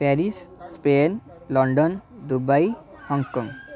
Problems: background conversations at intervals